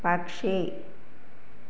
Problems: constant background noise